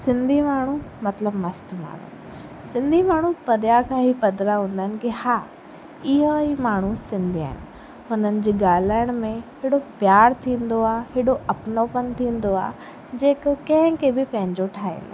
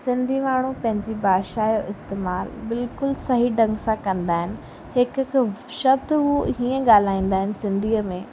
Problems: constant background noise